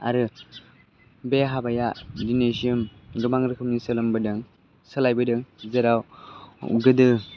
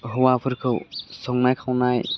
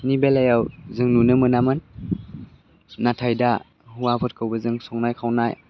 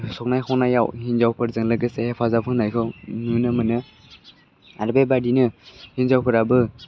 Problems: low volume